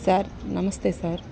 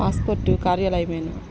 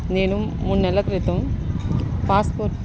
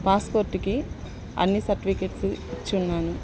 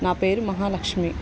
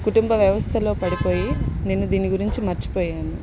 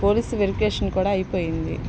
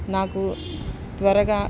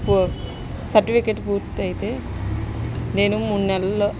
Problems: constant background noise